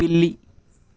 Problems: none marked